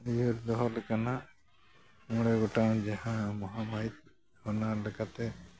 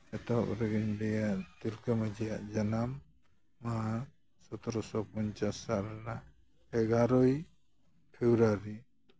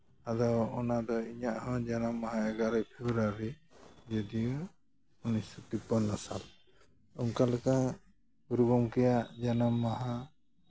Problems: none marked